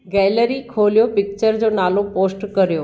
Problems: none marked